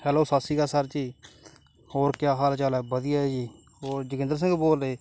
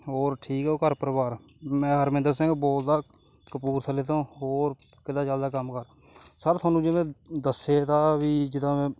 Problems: none marked